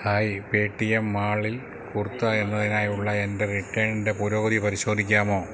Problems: none marked